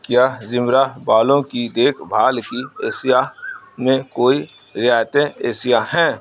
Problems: background sounds at intervals